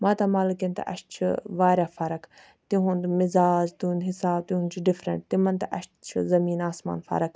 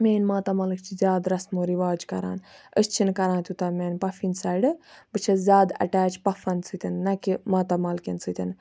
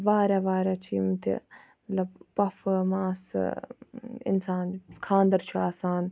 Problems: background sounds at intervals